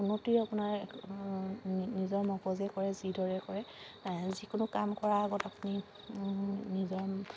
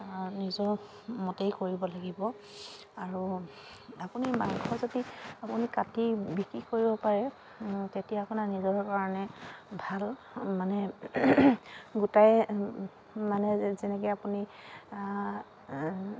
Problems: constant background noise